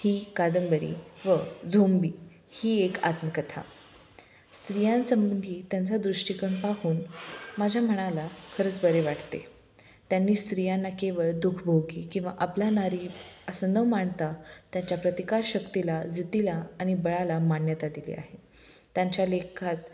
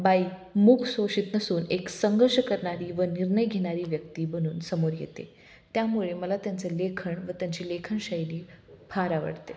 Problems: none marked